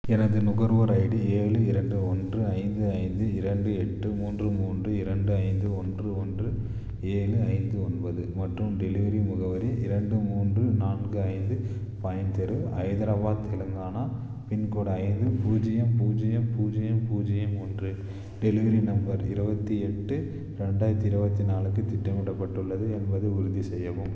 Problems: none marked